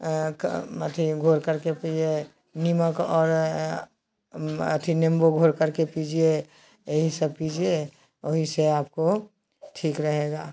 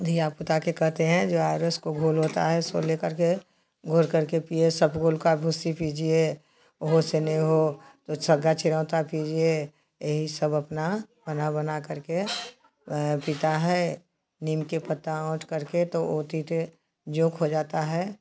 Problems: constant background noise